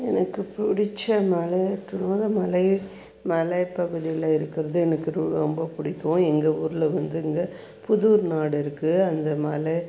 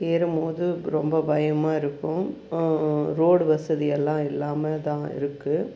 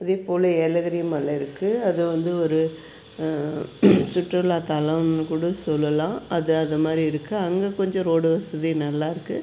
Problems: none marked